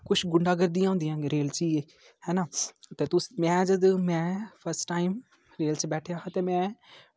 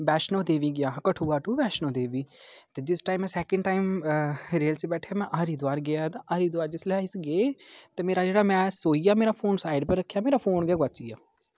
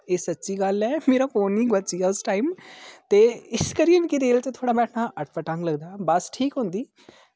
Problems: none marked